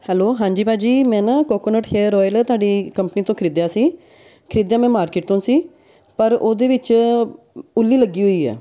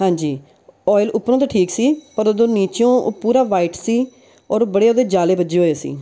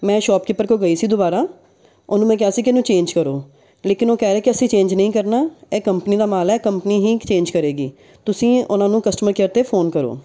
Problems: background sounds at intervals, background conversations at intervals